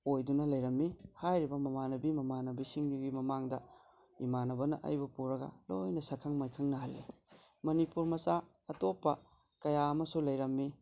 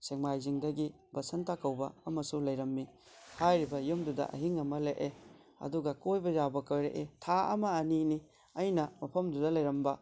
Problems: none marked